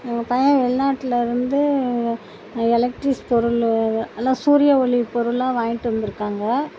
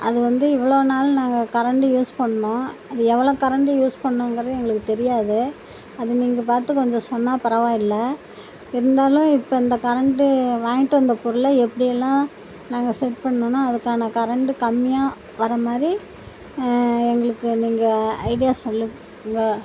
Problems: constant background noise